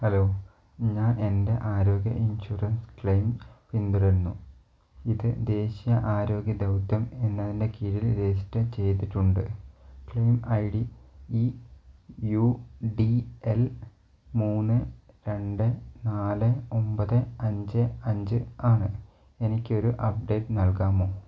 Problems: low volume